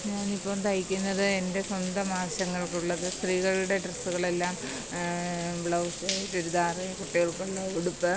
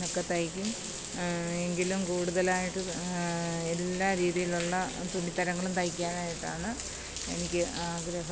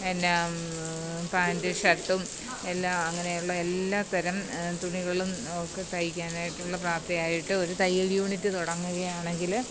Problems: constant background noise